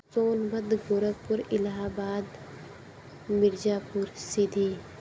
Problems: constant background noise, low volume